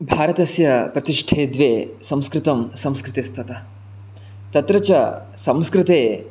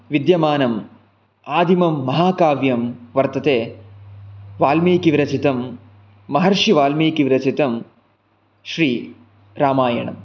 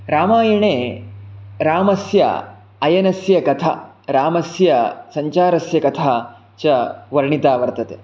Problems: none marked